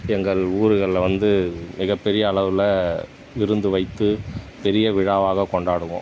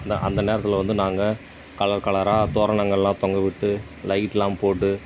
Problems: background sounds at intervals